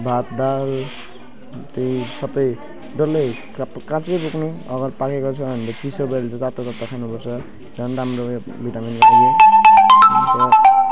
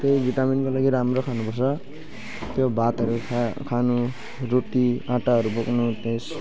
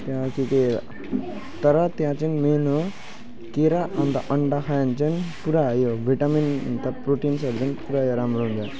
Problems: background sounds at intervals